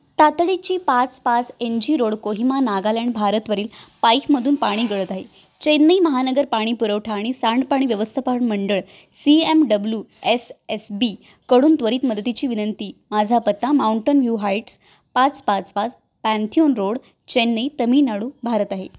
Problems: none marked